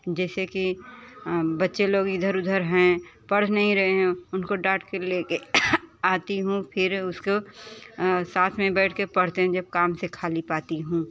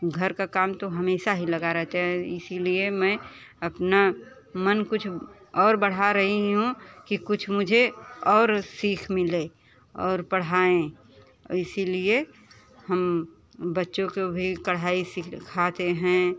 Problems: constant background noise, continuous background conversations